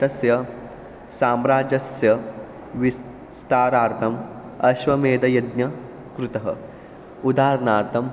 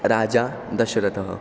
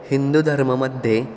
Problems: none marked